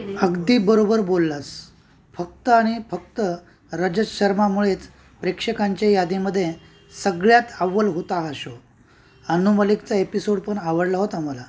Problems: constant background noise, background conversations at intervals